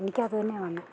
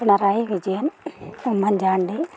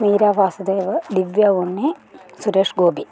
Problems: background conversations at intervals